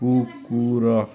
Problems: background conversations at intervals